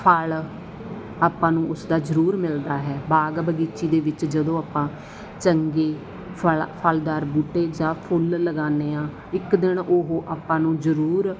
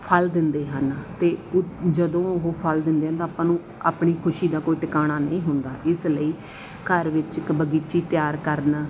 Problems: background conversations at intervals